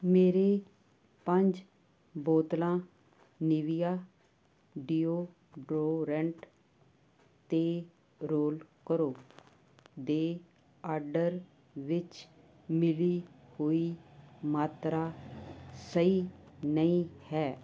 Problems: constant background noise